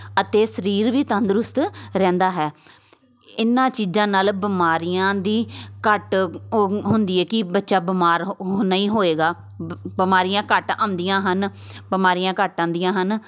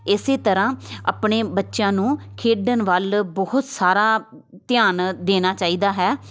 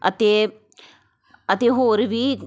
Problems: constant background noise